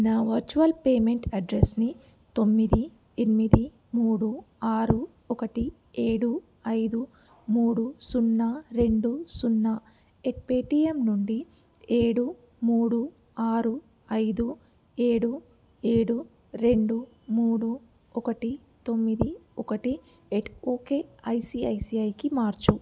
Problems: none marked